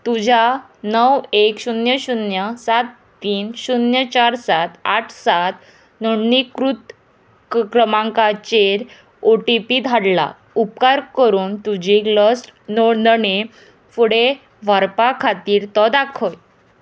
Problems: constant background noise